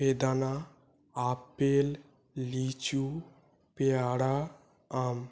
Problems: none marked